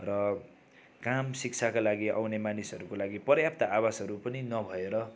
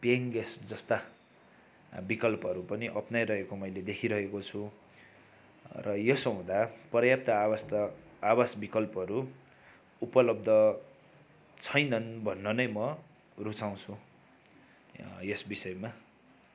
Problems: none marked